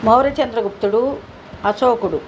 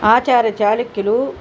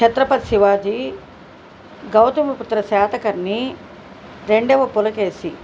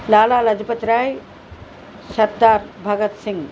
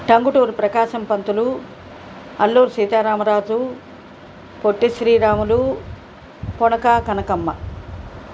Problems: constant background noise